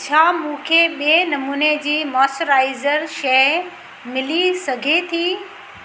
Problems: constant background noise, echo